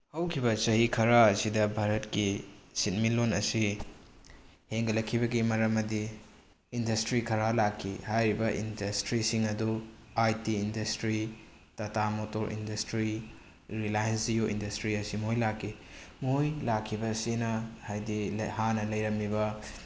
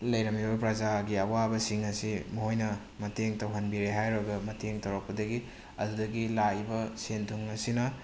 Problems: none marked